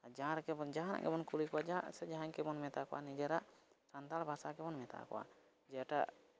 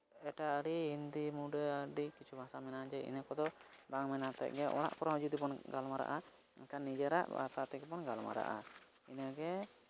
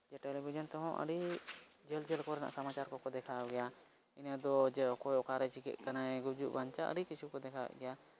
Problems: background sounds at intervals